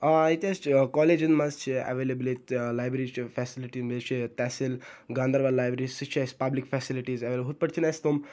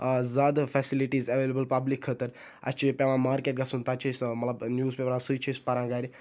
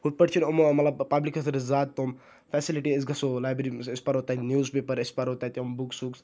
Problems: none marked